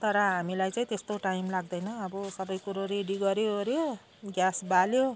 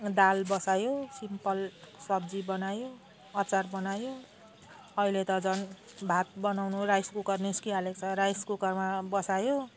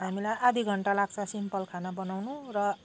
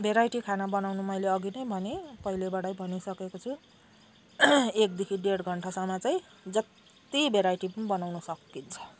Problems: none marked